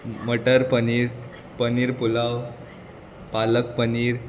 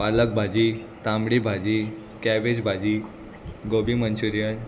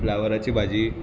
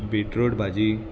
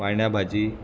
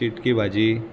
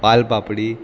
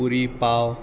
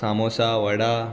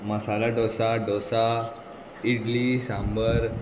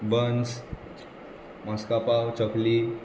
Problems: constant background noise